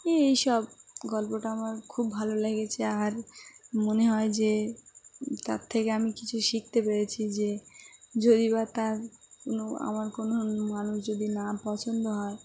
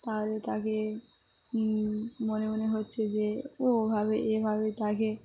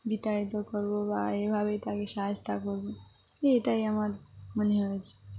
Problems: none marked